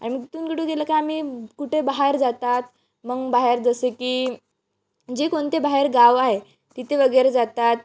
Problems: background sounds at intervals